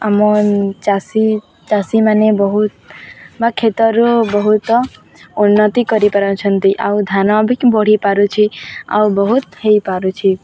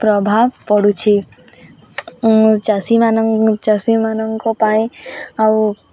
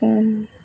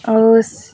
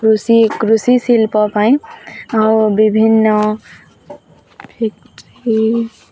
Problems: constant background noise, continuous background conversations